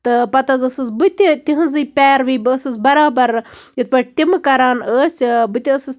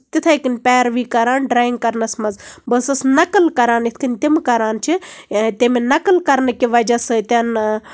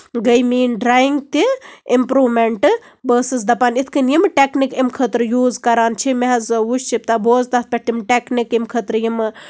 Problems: background sounds at intervals